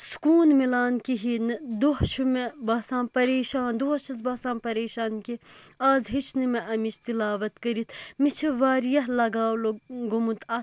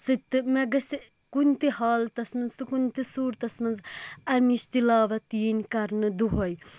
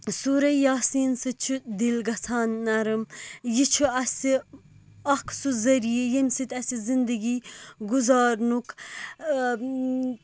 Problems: none marked